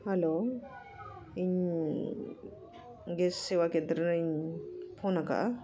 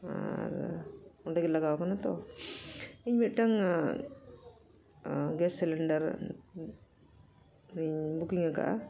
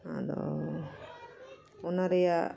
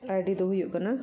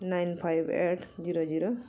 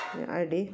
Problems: continuous background conversations